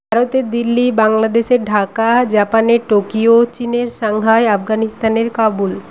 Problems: constant background noise